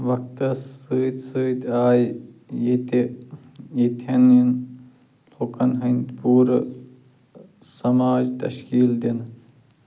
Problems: none marked